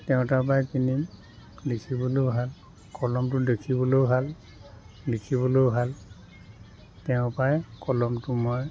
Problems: continuous background conversations